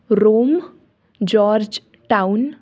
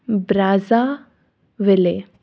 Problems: background sounds at intervals